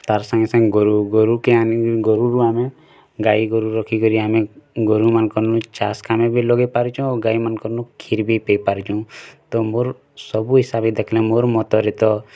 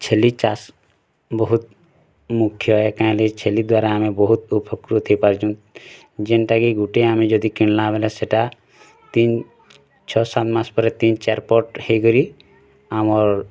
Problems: none marked